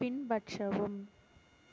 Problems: constant background noise